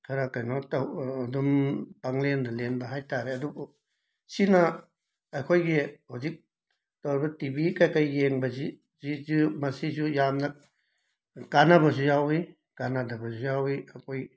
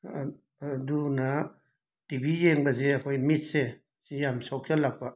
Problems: background sounds at intervals